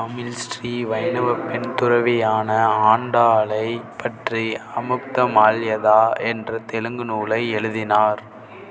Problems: background sounds at intervals